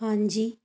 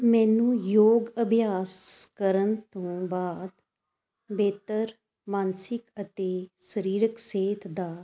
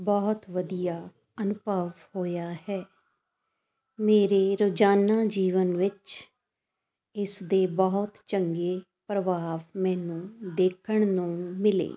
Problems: constant background noise